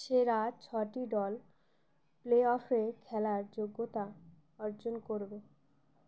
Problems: none marked